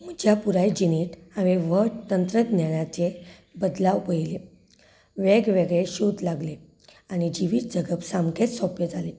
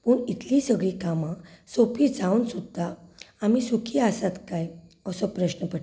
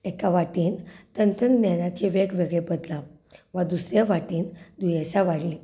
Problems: background conversations at intervals